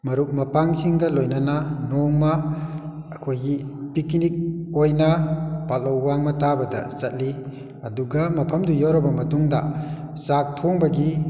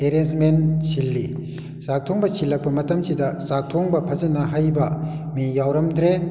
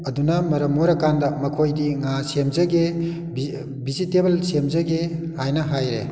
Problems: echo